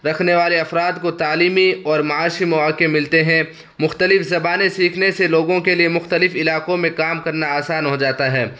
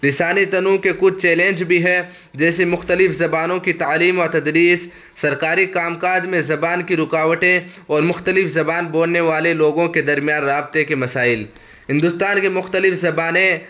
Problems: constant background noise